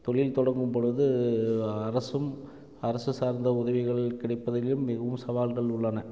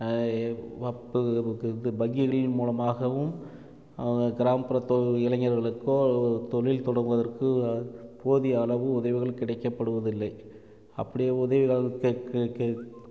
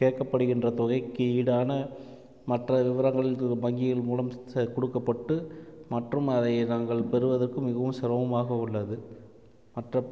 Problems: none marked